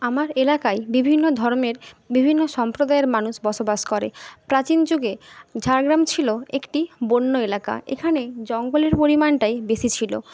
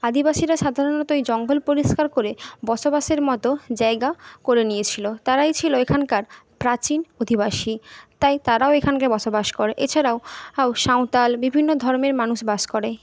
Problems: none marked